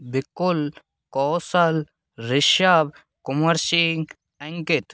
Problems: none marked